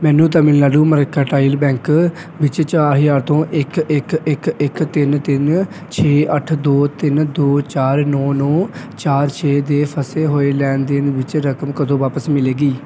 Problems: background sounds at intervals